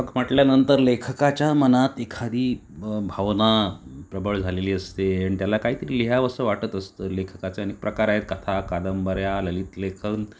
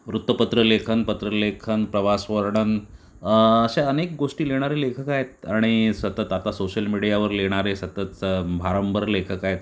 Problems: none marked